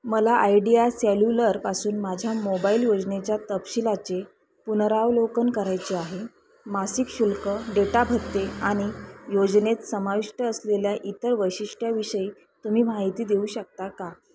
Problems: constant background noise, continuous background conversations